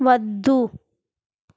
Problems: background conversations at intervals